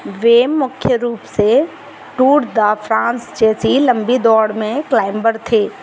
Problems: none marked